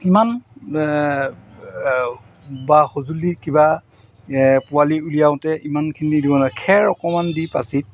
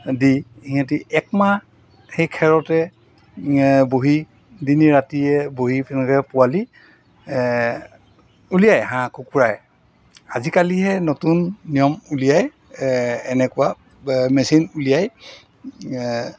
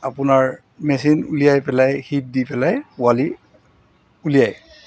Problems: constant background noise